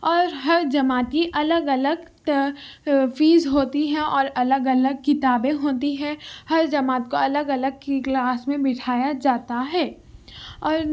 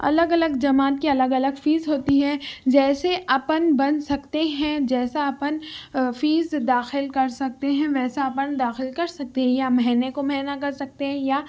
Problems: none marked